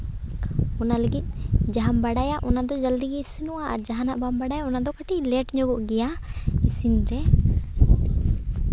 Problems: constant background noise